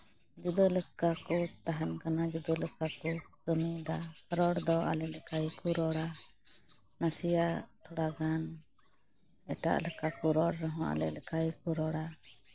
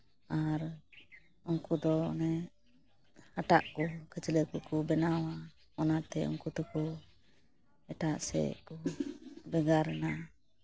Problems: constant background noise